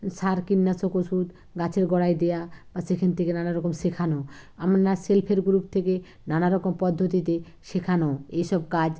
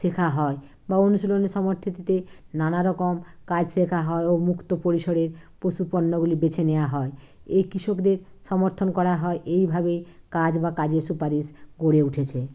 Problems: none marked